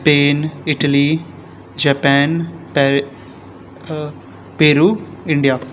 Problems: none marked